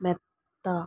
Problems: low volume